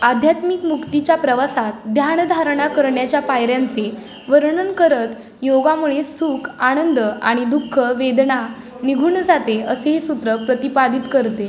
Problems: constant background noise, background conversations at intervals